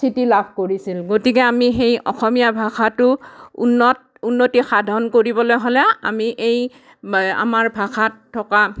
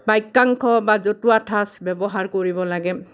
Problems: none marked